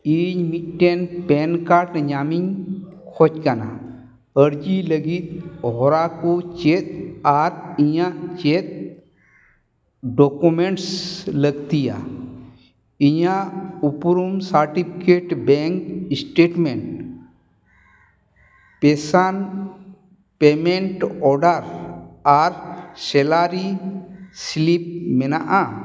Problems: echo